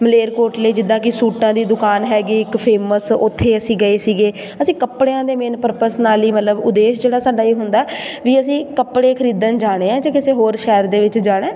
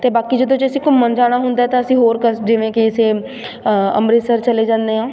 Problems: constant background noise